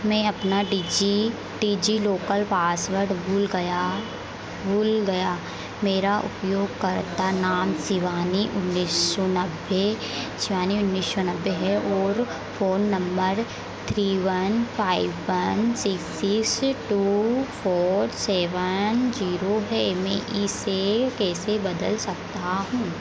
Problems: none marked